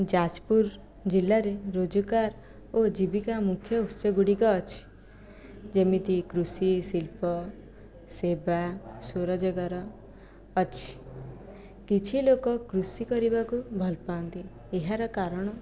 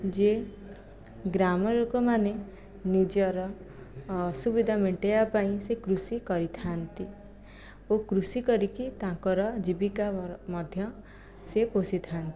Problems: low volume